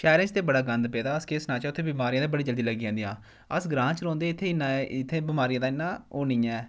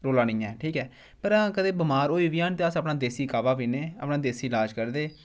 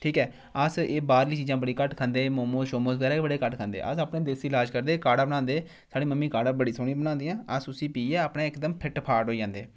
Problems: none marked